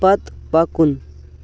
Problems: background sounds at intervals